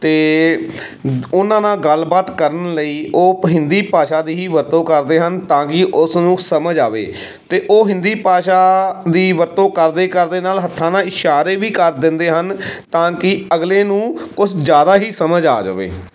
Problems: background sounds at intervals